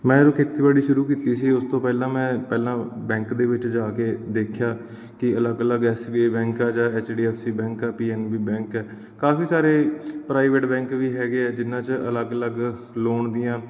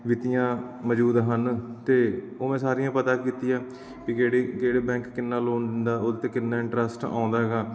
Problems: none marked